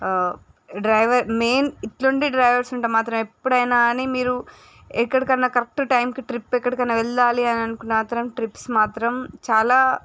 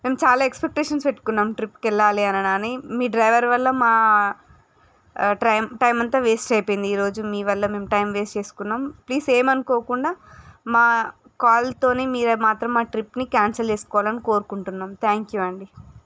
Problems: none marked